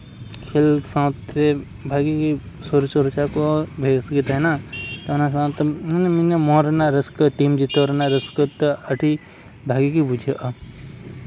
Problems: none marked